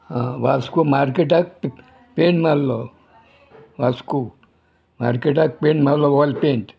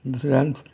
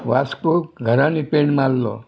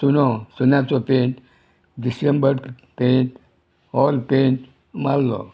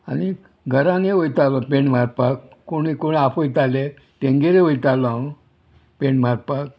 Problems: none marked